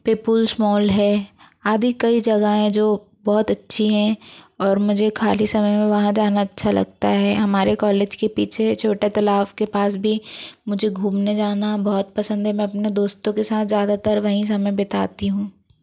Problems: constant background noise